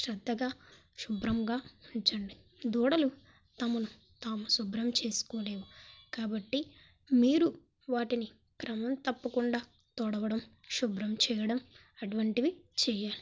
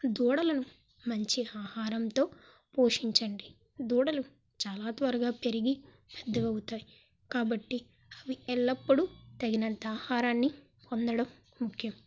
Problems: background sounds at intervals